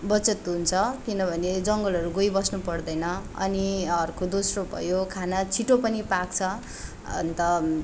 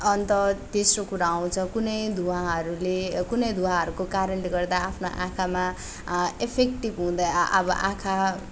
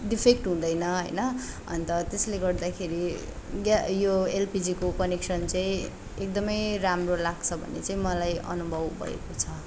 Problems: none marked